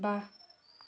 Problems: background sounds at intervals, background conversations at intervals